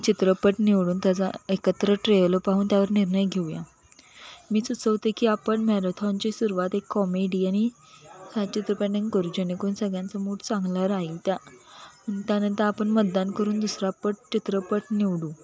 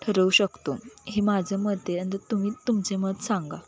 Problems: none marked